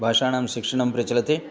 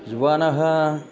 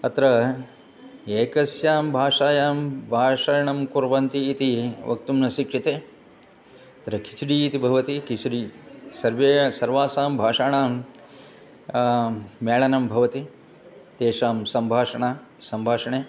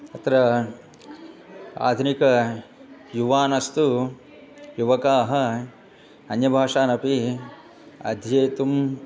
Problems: continuous background conversations